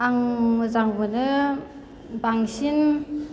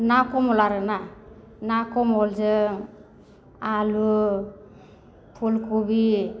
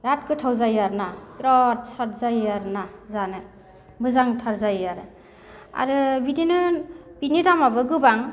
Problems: none marked